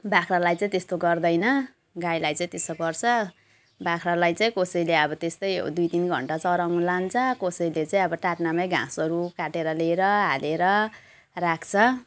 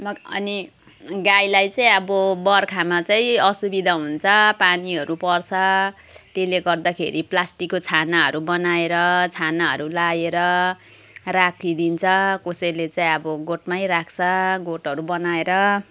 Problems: constant background noise